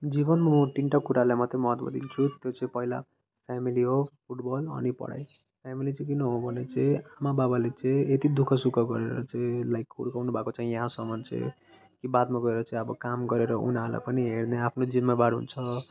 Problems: constant background noise